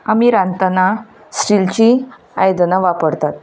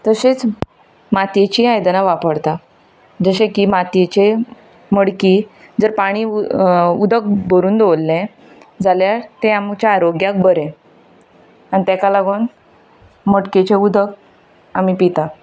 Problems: constant background noise